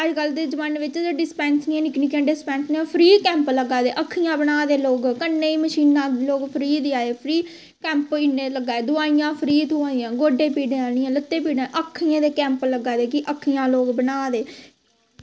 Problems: constant background noise